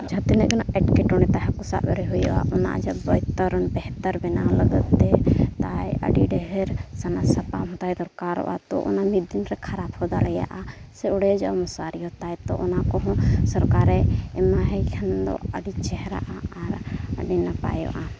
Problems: constant background noise